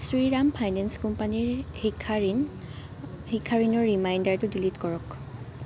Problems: constant background noise